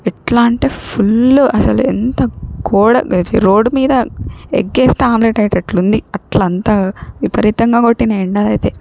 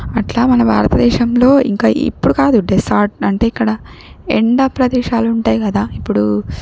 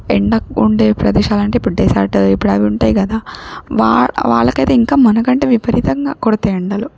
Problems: none marked